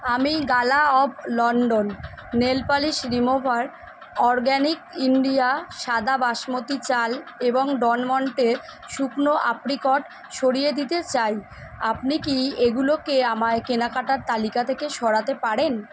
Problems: none marked